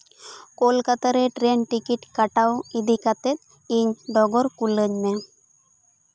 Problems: none marked